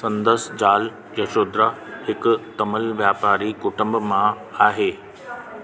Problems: constant background noise, echo